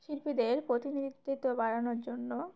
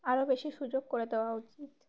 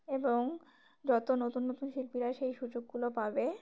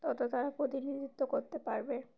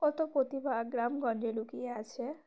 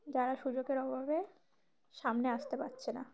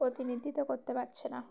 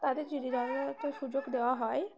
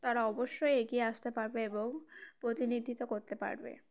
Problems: constant background noise, background conversations at intervals